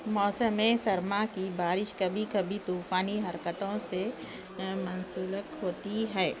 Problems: constant background noise, low volume